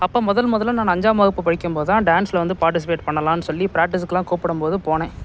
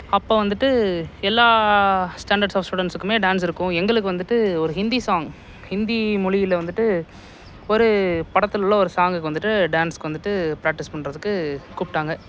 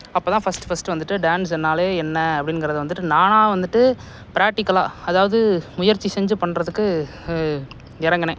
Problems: background sounds at intervals